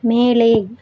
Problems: none marked